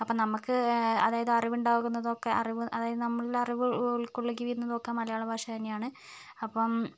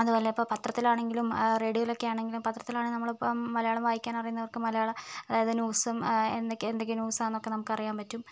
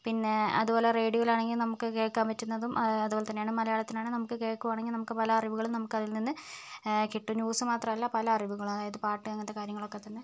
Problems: none marked